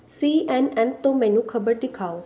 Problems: none marked